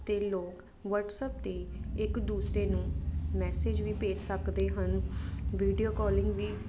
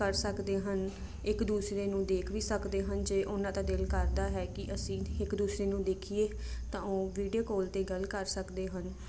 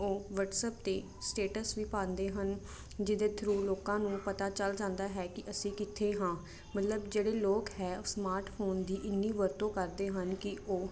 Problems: constant background noise